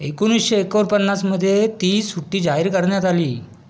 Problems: background sounds at intervals